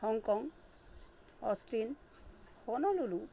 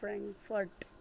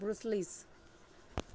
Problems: constant background noise